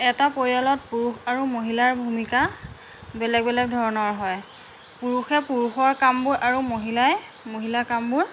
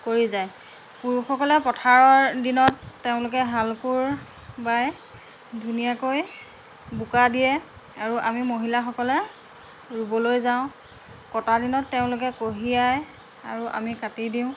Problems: constant background noise